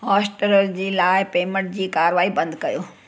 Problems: constant background noise